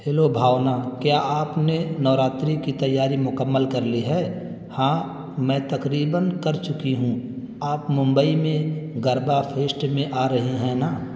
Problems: constant background noise